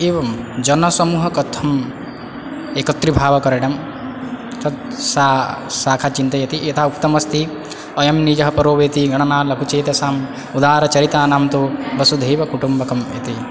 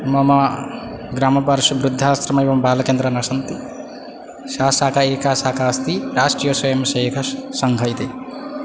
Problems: background sounds at intervals